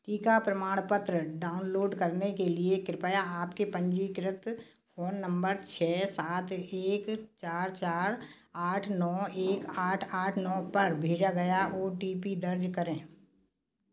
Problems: background sounds at intervals